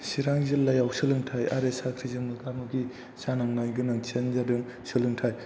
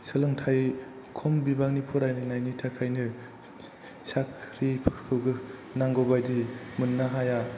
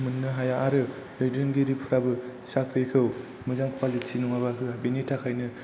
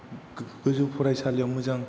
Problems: constant background noise